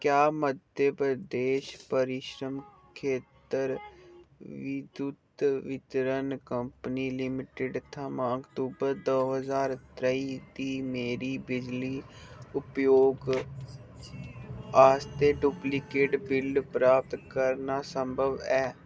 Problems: none marked